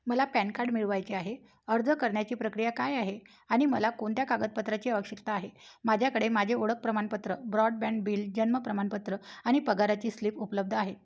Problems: background sounds at intervals